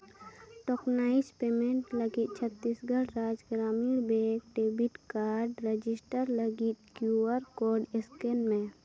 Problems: background sounds at intervals, background conversations at intervals